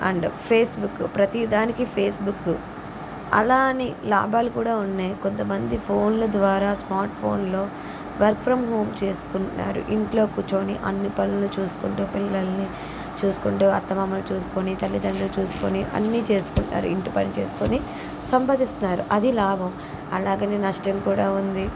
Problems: constant background noise